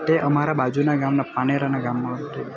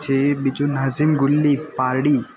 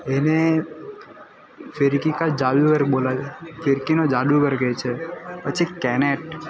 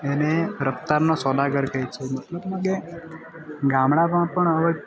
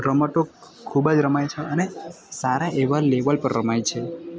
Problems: constant background noise